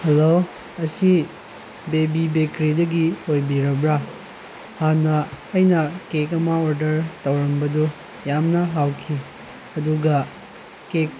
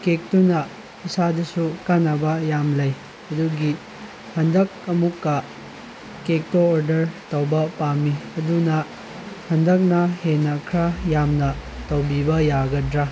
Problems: constant background noise